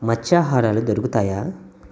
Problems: none marked